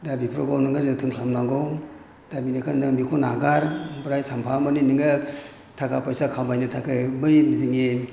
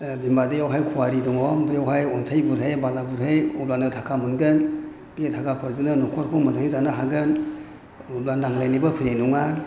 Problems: none marked